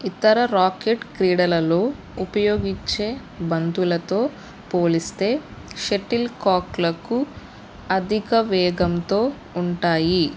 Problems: none marked